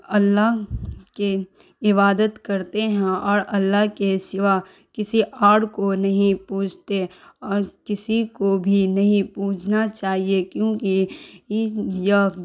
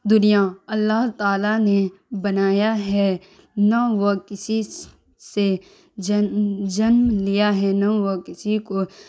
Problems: none marked